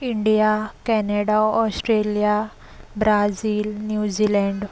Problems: constant background noise